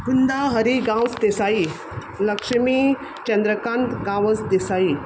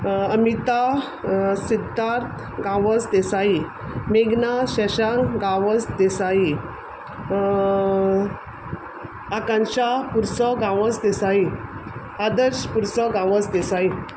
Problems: none marked